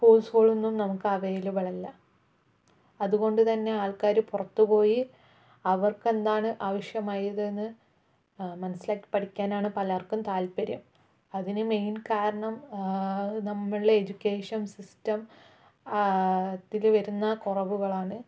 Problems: low volume